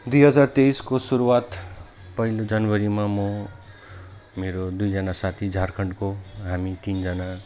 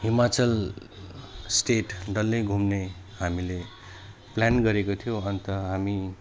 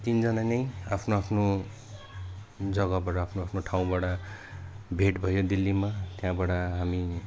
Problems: none marked